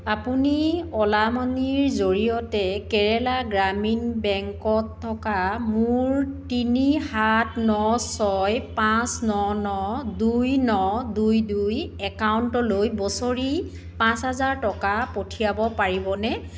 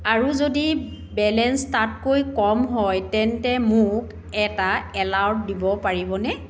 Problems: constant background noise, background conversations at intervals